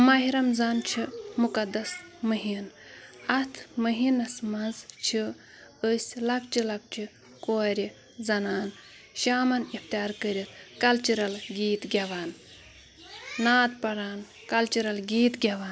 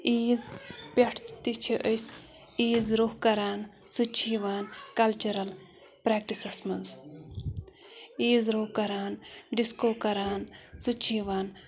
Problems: background sounds at intervals